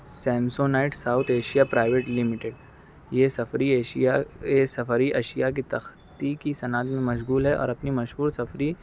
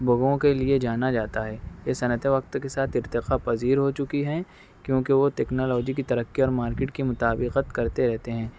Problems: constant background noise